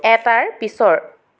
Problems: none marked